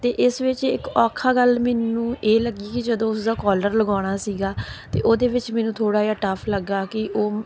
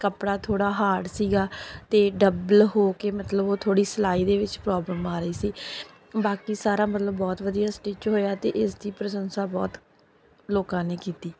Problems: background sounds at intervals, background conversations at intervals